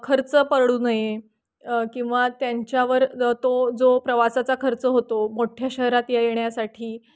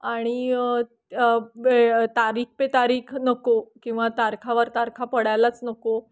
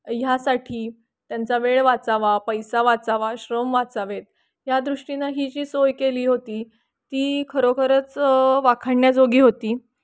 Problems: none marked